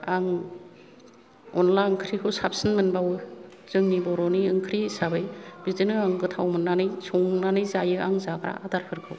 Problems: none marked